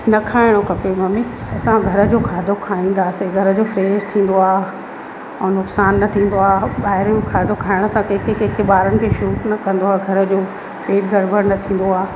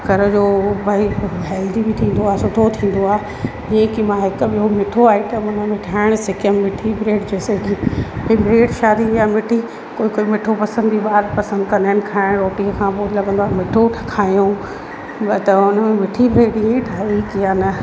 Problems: constant background noise, echo